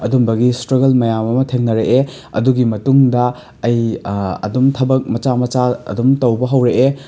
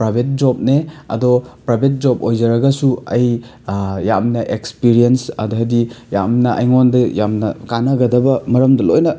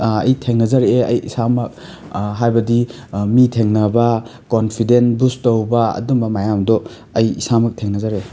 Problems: background sounds at intervals